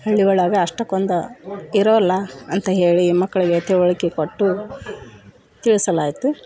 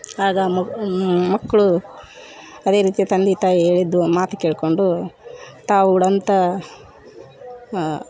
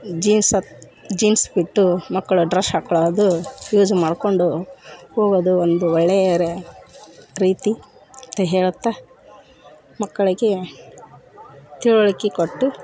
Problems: background conversations at intervals